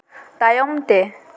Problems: echo